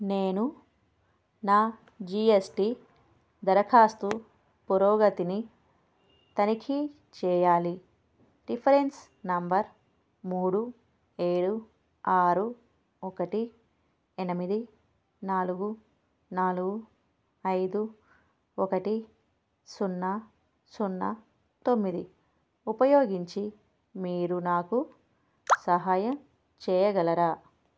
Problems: background sounds at intervals